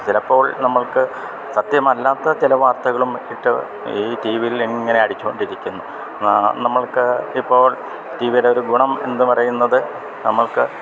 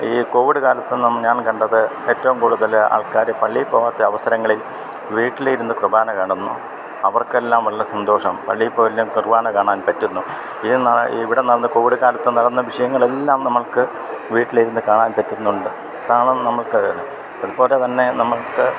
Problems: none marked